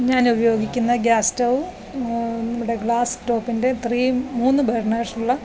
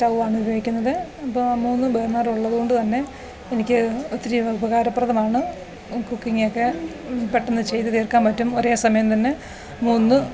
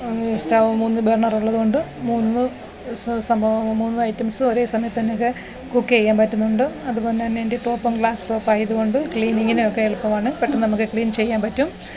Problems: none marked